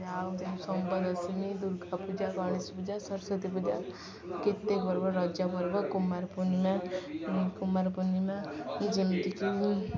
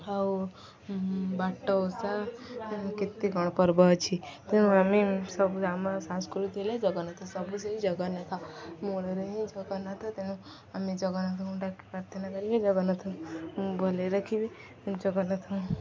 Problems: constant background noise, continuous background conversations